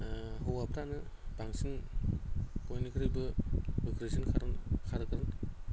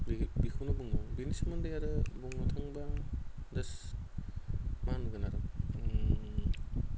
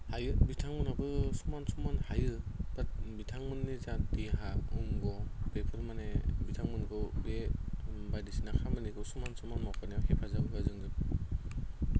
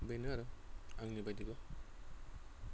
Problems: none marked